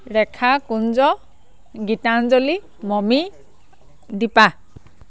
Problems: none marked